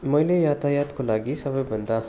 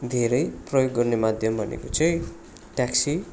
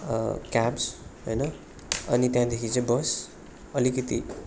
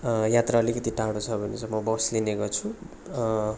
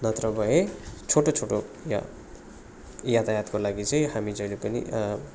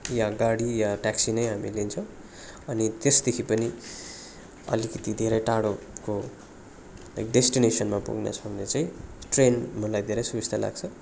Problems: none marked